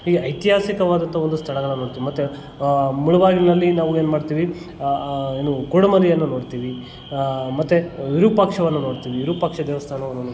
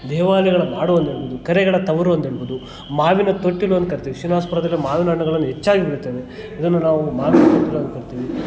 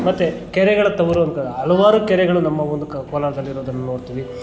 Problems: constant background noise, continuous background conversations